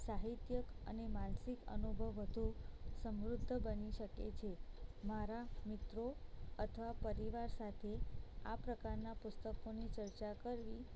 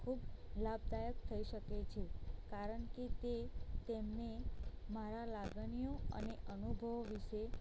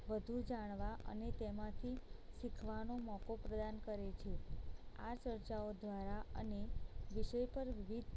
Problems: low volume